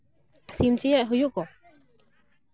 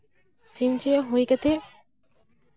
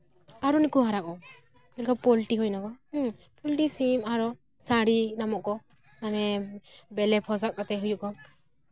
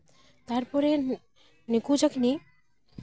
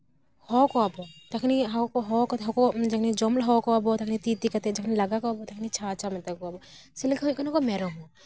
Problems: none marked